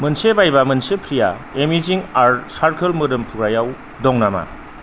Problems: constant background noise